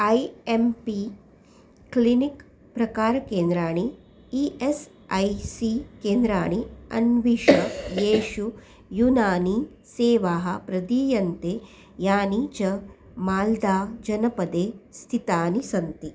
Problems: background sounds at intervals